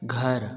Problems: background sounds at intervals